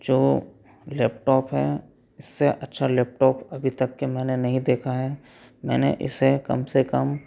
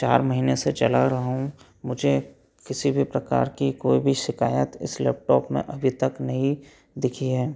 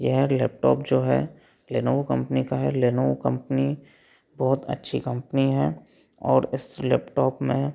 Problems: none marked